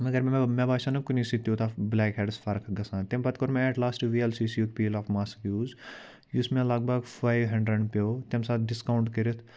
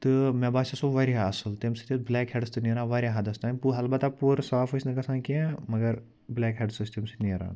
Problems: background sounds at intervals